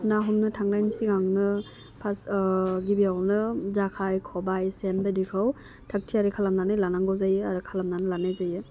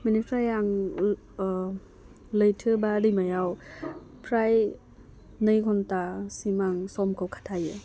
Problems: none marked